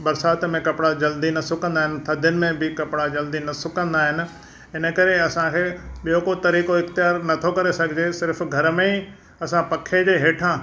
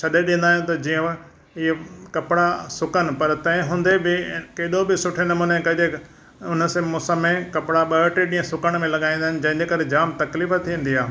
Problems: none marked